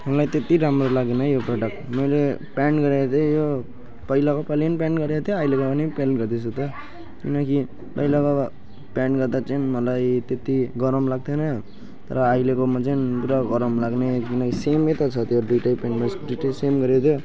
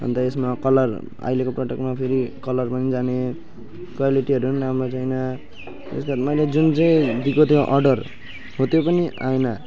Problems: background sounds at intervals